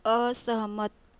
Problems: constant background noise